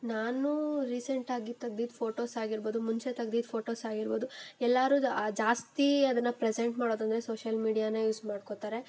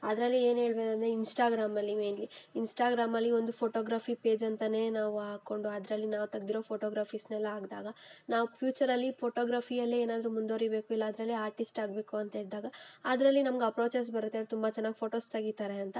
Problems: background sounds at intervals